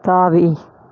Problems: none marked